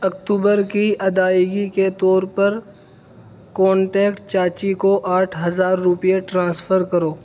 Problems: constant background noise